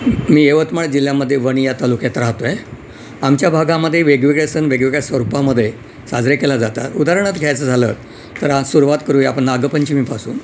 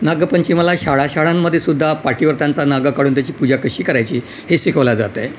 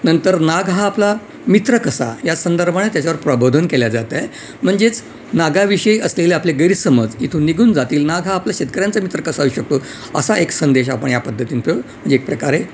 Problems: none marked